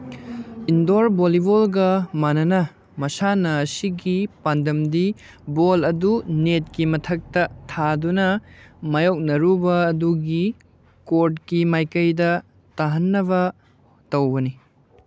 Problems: none marked